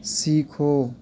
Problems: background sounds at intervals